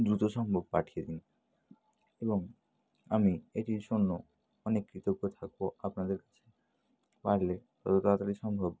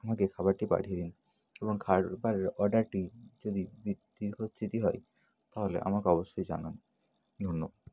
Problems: constant background noise